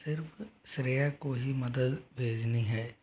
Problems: low volume